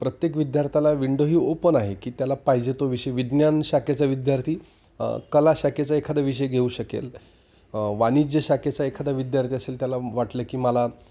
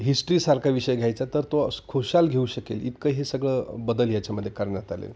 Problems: none marked